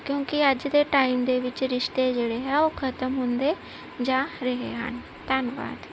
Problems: none marked